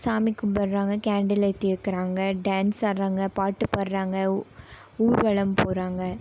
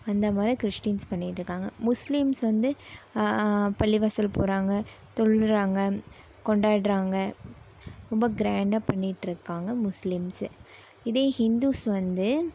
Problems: none marked